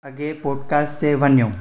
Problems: echo